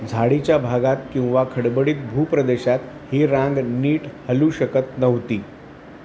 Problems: none marked